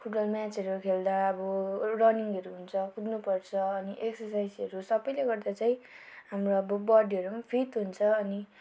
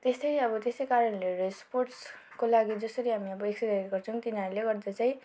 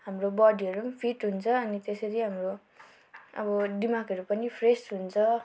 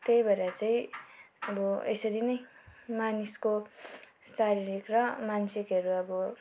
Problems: background sounds at intervals